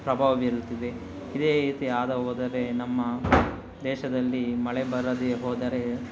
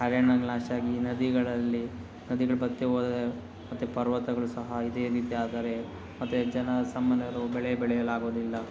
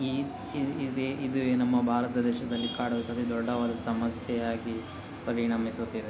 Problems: background sounds at intervals